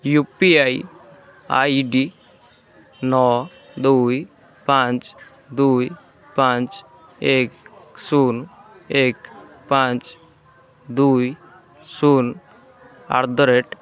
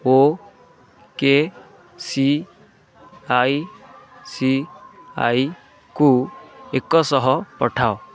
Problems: constant background noise